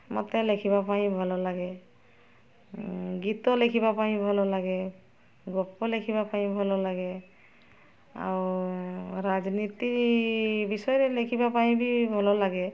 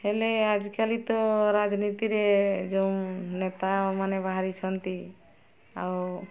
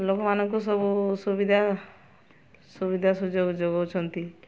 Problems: constant background noise, continuous background conversations